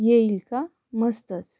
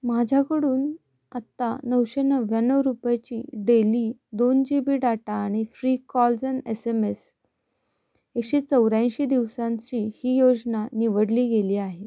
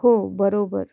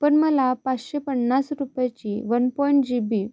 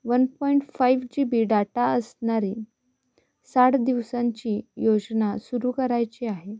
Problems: none marked